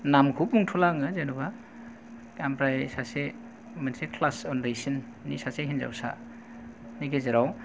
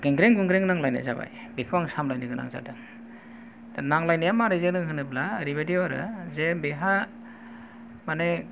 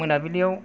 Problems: low volume